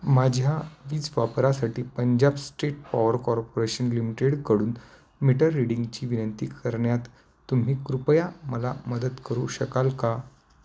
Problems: none marked